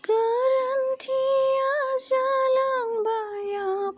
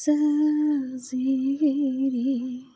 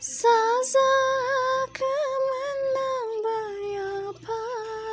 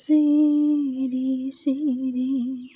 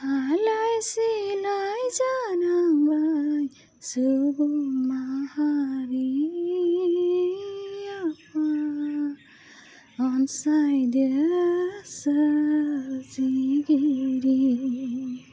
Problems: low volume